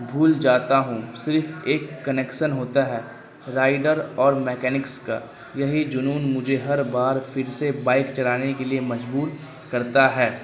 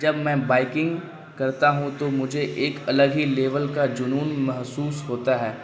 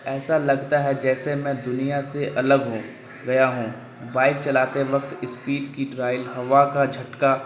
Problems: constant background noise